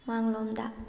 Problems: background sounds at intervals